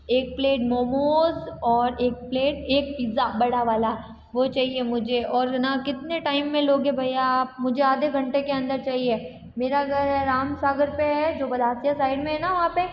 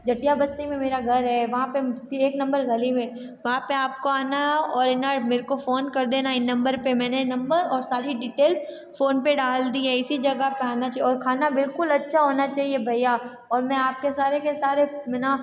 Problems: background sounds at intervals, background conversations at intervals